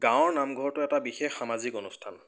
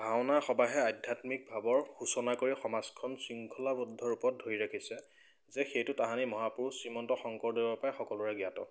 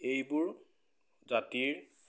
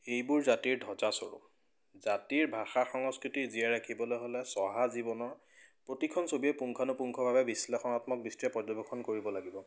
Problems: none marked